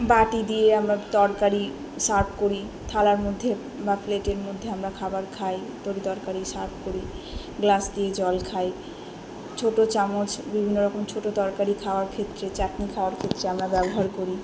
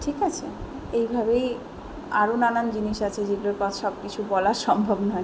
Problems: continuous background conversations